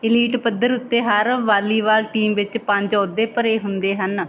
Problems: background conversations at intervals